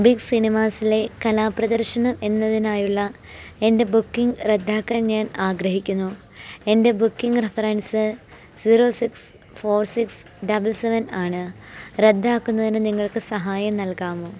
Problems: background sounds at intervals